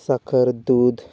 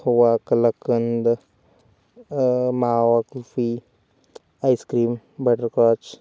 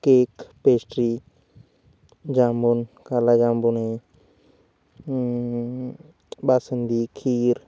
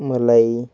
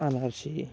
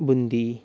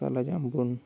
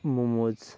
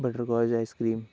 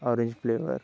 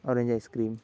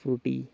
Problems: constant background noise